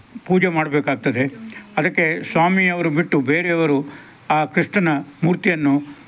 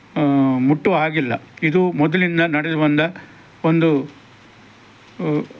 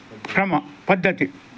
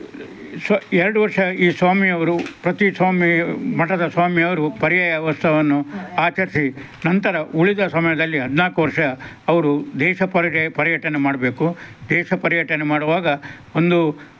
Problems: none marked